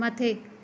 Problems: none marked